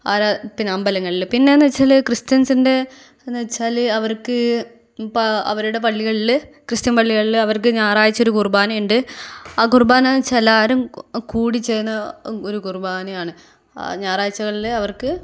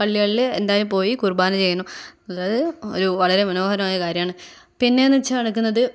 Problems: none marked